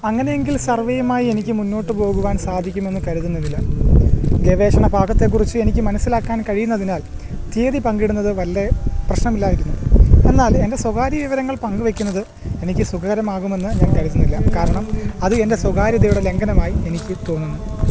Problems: constant background noise